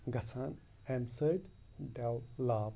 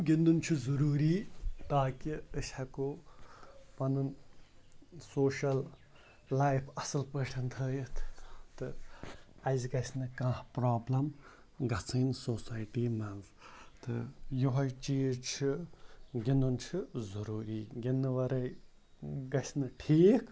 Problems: background sounds at intervals